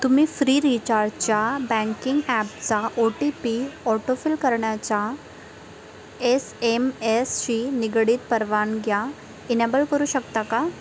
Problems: none marked